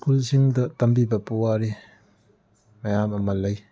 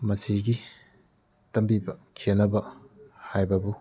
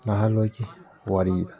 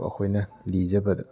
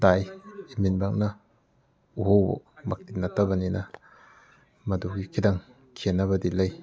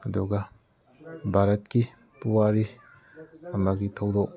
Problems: background conversations at intervals